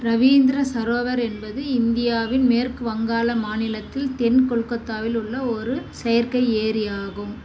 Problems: constant background noise